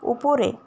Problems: constant background noise